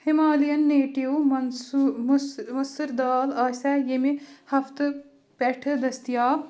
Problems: background conversations at intervals